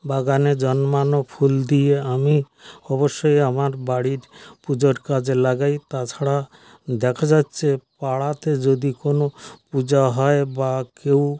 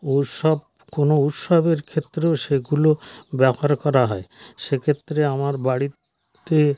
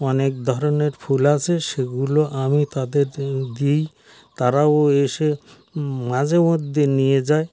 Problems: none marked